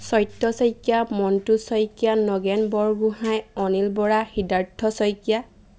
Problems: none marked